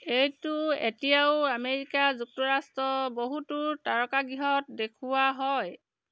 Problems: constant background noise